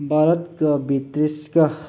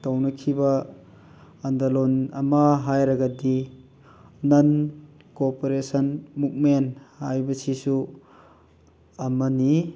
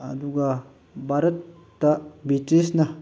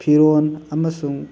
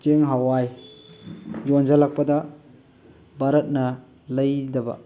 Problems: constant background noise